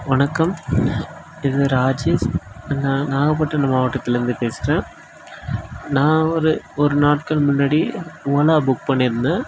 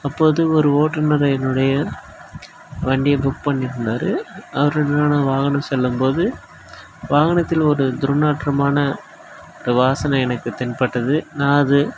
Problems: none marked